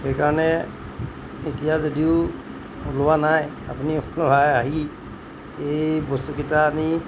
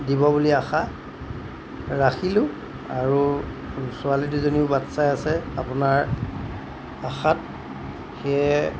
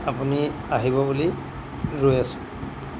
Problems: background sounds at intervals